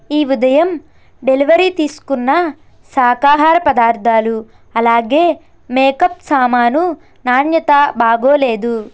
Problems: constant background noise